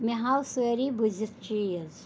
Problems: none marked